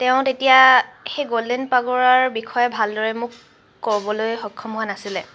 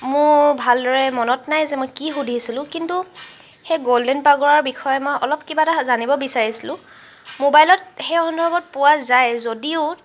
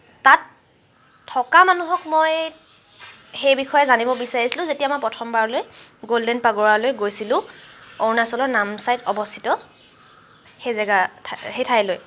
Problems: background sounds at intervals